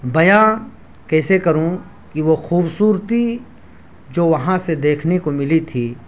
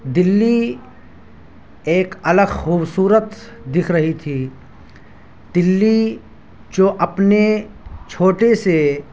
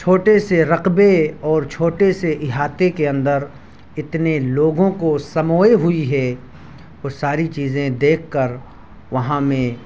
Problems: none marked